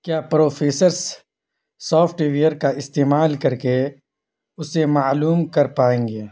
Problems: constant background noise